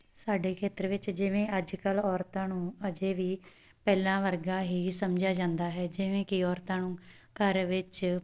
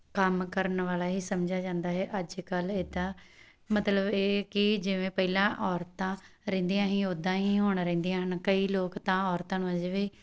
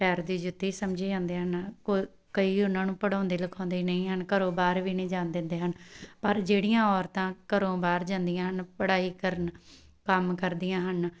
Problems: background sounds at intervals